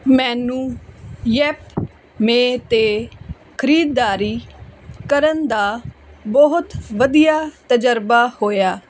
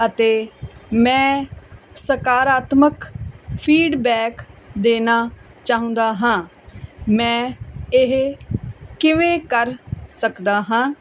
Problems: none marked